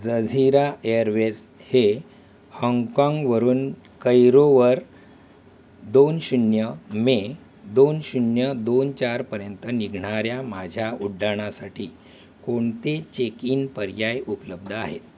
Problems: none marked